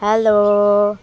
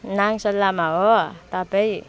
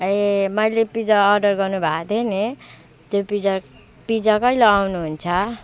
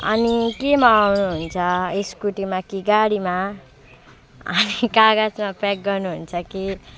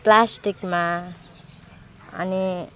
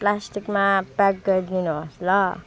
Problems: constant background noise